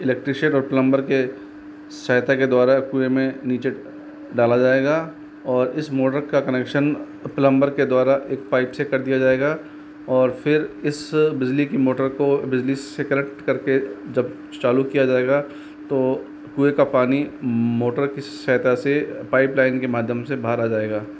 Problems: none marked